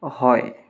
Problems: background sounds at intervals